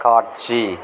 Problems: constant background noise